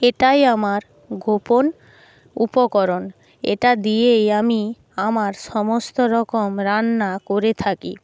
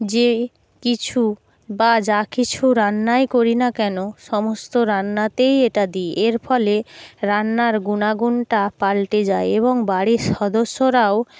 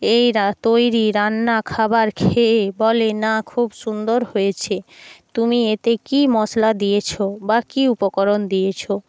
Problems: background sounds at intervals